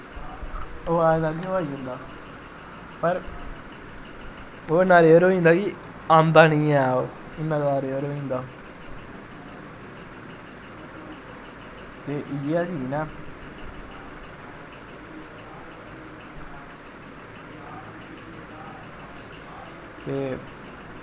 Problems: constant background noise, echo